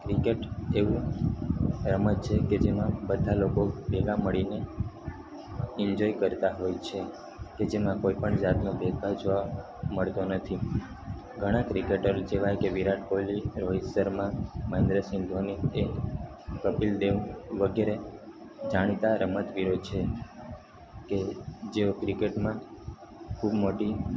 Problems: constant background noise